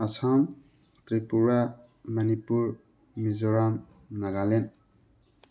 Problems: background sounds at intervals